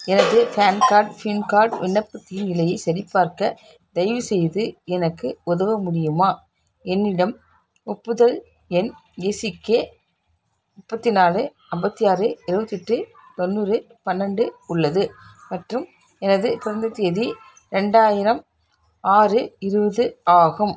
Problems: background sounds at intervals